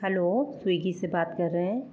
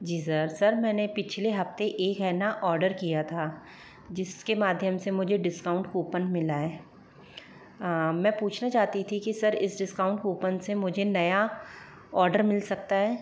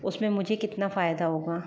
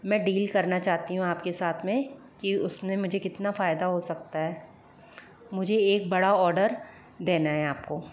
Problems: none marked